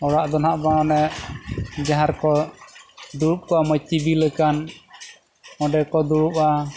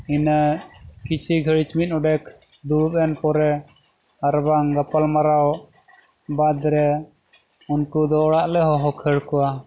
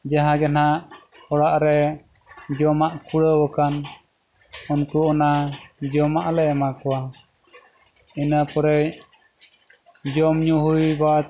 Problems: constant background noise